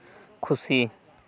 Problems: none marked